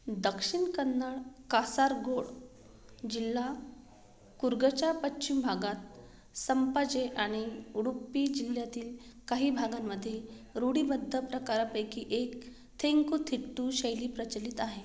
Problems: background sounds at intervals